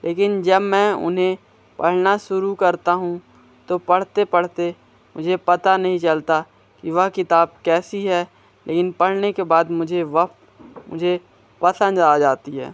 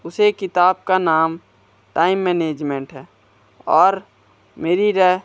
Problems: constant background noise